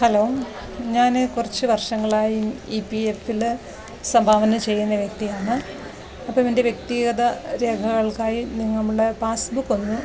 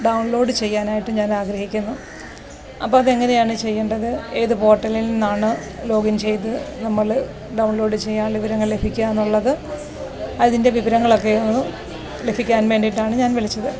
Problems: none marked